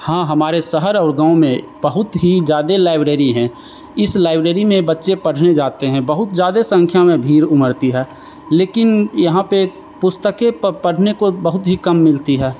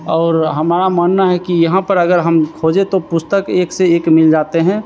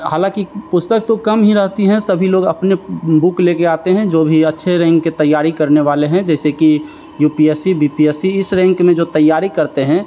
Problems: none marked